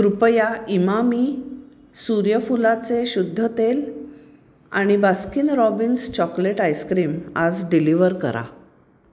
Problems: constant background noise